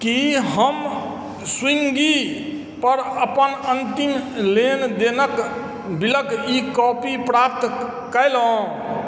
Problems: background sounds at intervals